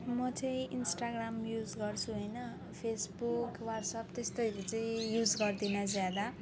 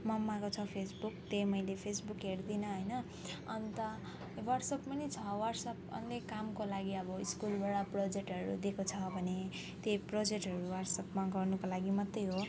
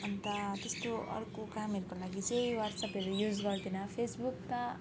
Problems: none marked